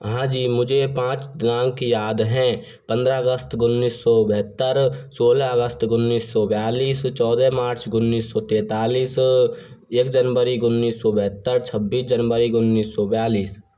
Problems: constant background noise